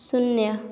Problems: none marked